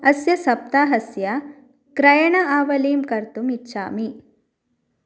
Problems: none marked